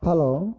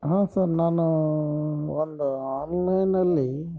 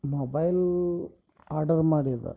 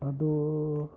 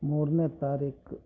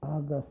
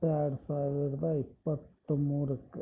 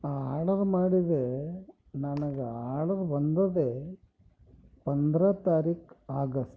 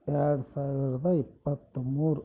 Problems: none marked